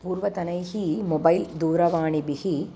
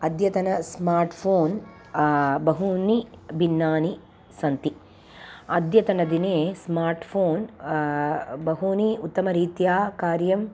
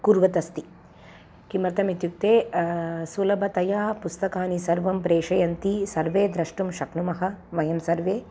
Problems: constant background noise